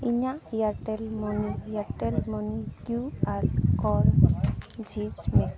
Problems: constant background noise, continuous background conversations